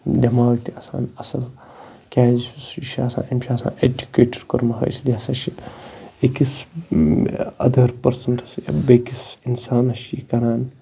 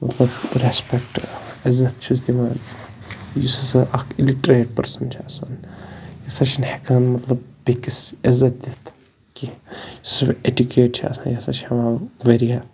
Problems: constant background noise